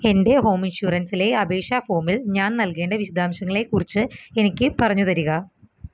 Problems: background sounds at intervals